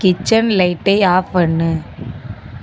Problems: constant background noise